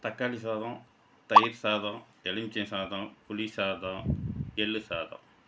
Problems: background sounds at intervals